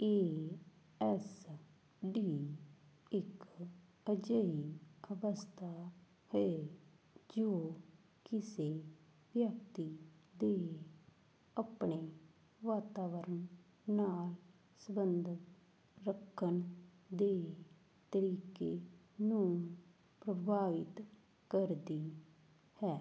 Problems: background sounds at intervals